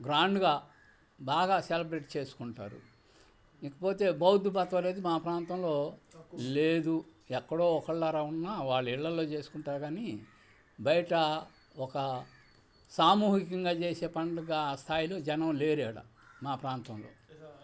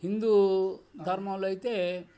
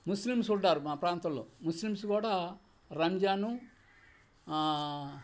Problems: constant background noise